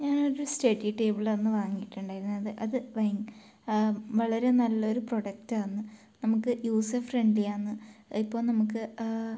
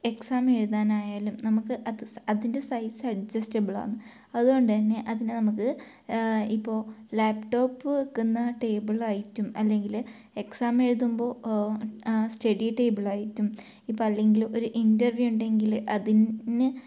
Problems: low volume